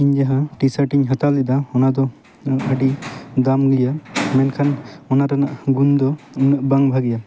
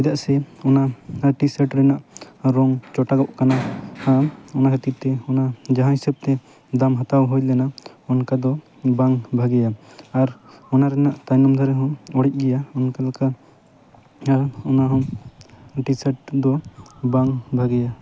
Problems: none marked